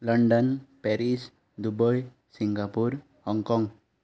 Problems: background sounds at intervals